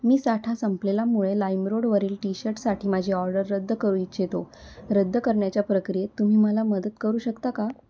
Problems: constant background noise